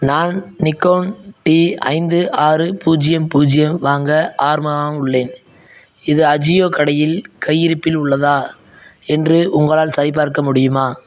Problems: none marked